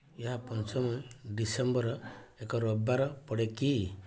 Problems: low volume